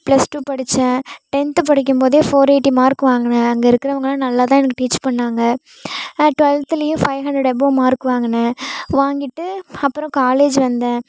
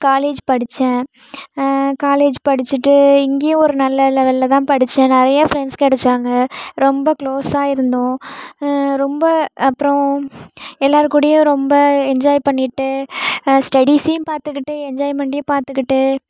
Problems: none marked